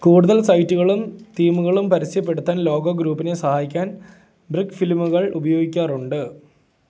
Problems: none marked